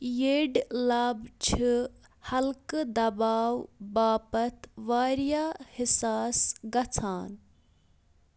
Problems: background sounds at intervals